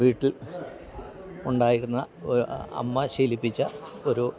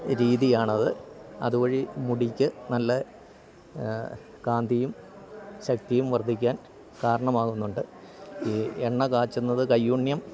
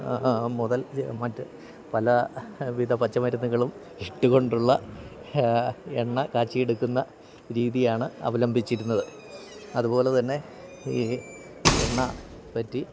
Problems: background sounds at intervals